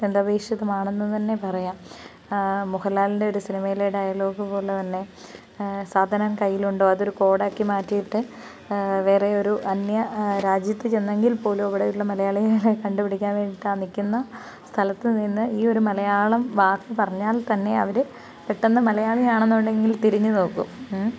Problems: background sounds at intervals